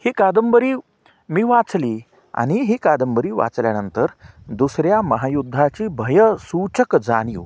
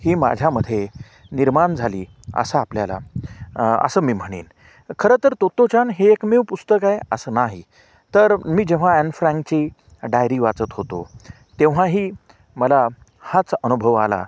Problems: background sounds at intervals